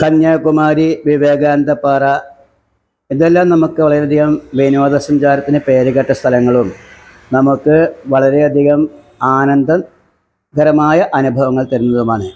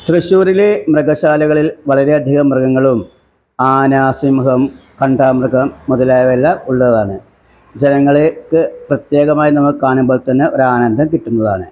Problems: background sounds at intervals